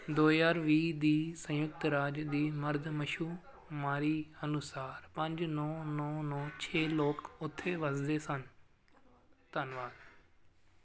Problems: constant background noise